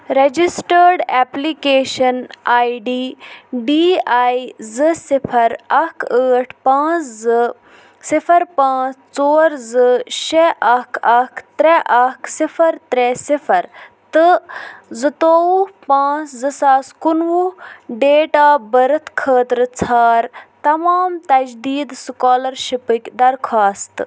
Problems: constant background noise